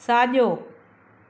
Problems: none marked